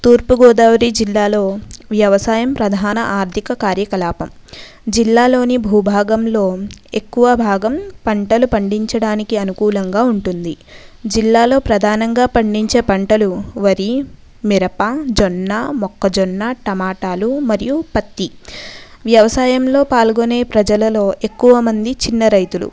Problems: background conversations at intervals